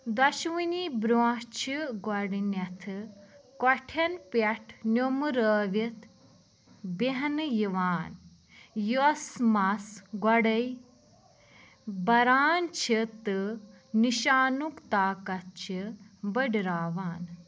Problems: background sounds at intervals